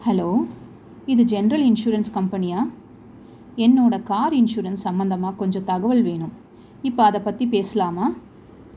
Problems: constant background noise